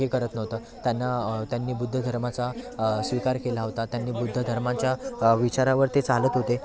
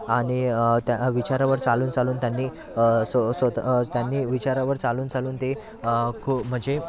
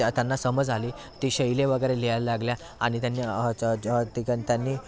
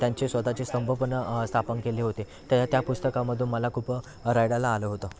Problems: constant background noise, continuous background conversations